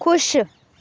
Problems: background sounds at intervals